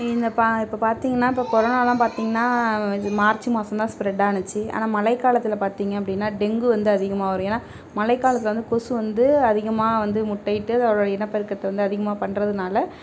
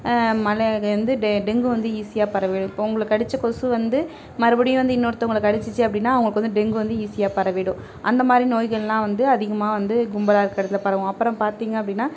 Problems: continuous background conversations